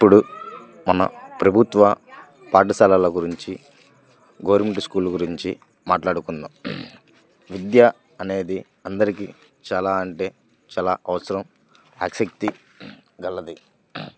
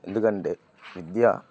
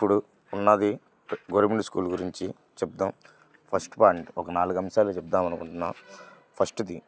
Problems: none marked